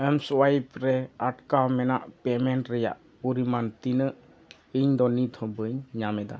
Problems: none marked